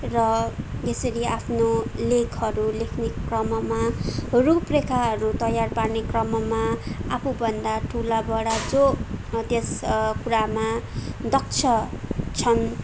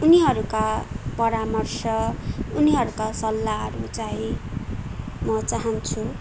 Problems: constant background noise